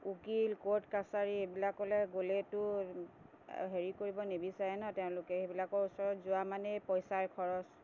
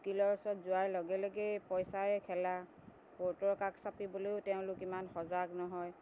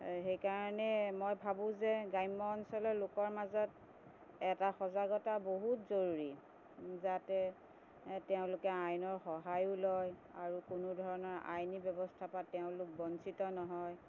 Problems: constant background noise